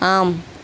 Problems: constant background noise